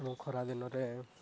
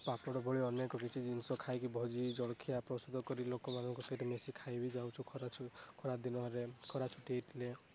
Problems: constant background noise, low volume